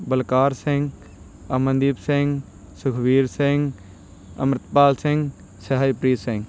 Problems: none marked